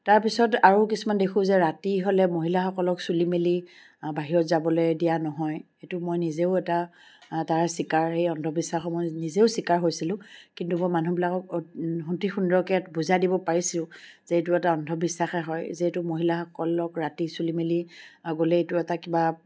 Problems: background sounds at intervals